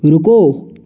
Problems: constant background noise